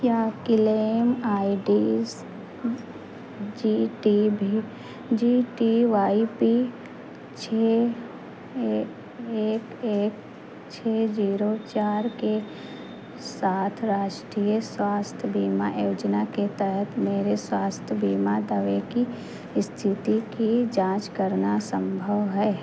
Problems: constant background noise